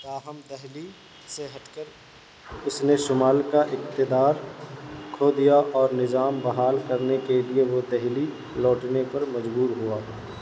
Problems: constant background noise